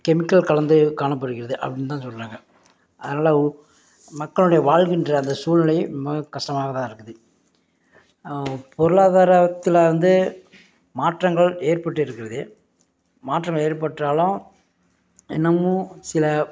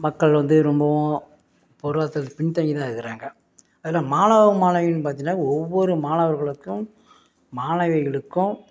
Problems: background sounds at intervals